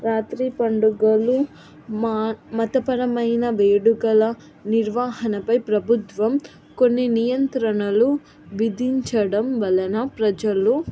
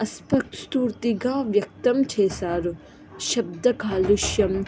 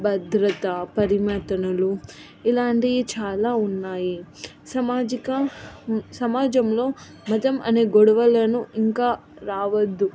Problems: background conversations at intervals